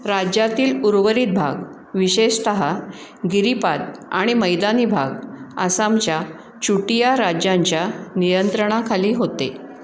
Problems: none marked